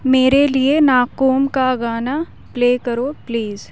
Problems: none marked